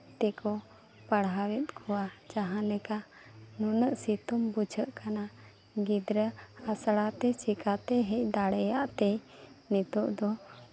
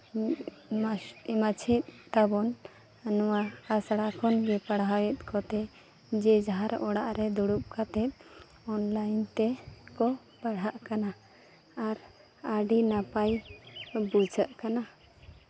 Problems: constant background noise